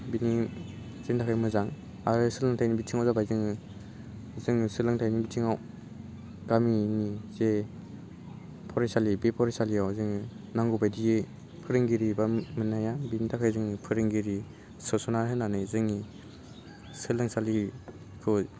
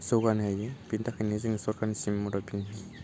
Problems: low volume